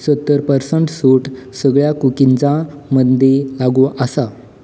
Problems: background sounds at intervals